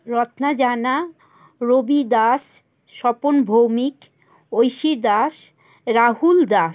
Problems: constant background noise, background conversations at intervals